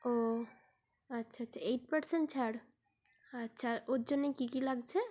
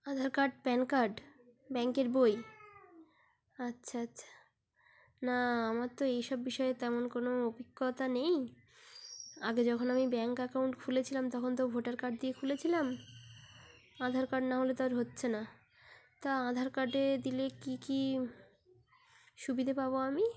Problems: background sounds at intervals